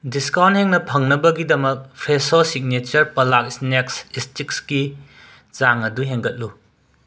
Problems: none marked